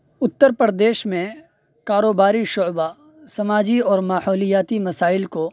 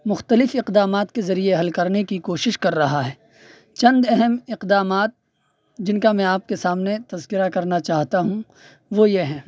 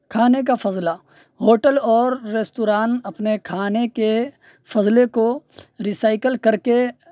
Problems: none marked